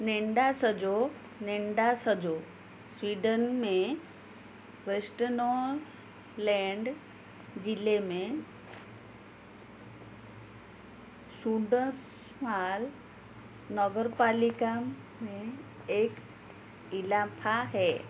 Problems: background sounds at intervals